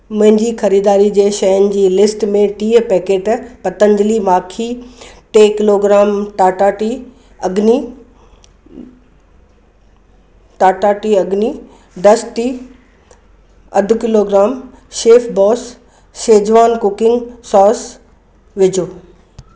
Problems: background sounds at intervals